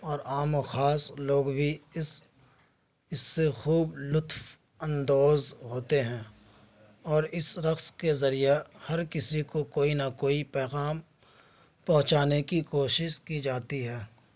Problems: background conversations at intervals